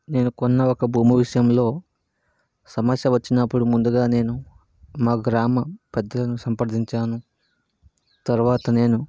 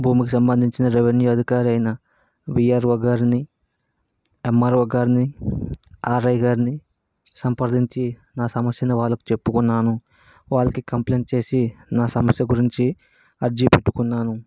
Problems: background sounds at intervals